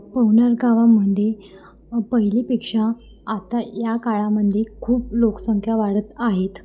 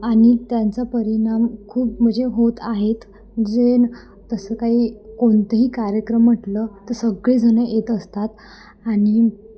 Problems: constant background noise, background conversations at intervals